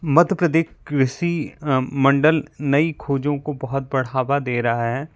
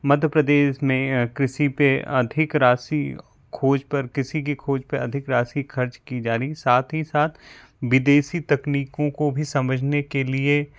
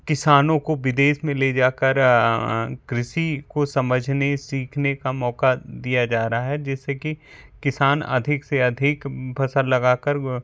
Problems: background sounds at intervals